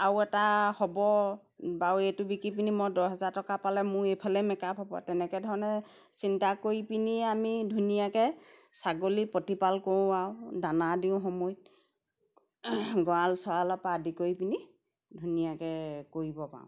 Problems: background sounds at intervals